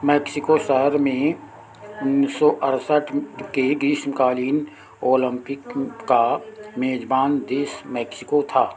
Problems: constant background noise